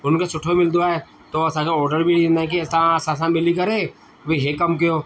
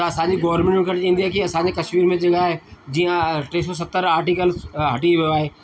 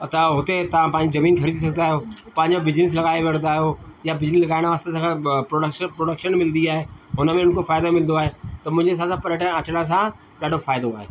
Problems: constant background noise